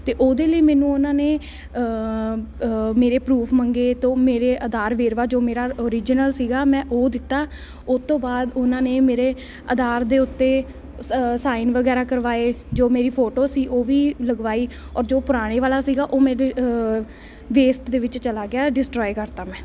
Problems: none marked